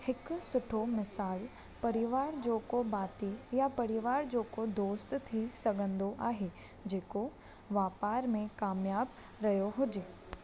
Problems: constant background noise